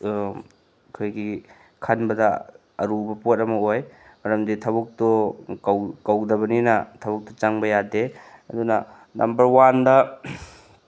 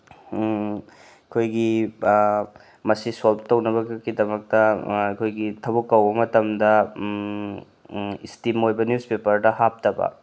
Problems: none marked